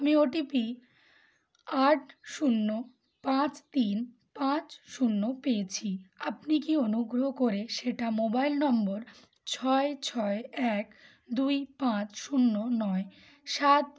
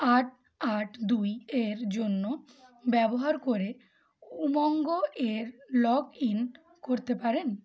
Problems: continuous background conversations